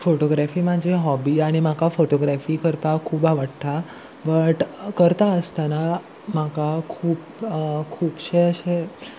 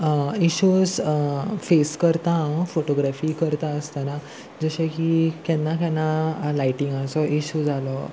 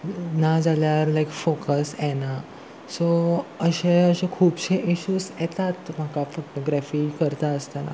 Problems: none marked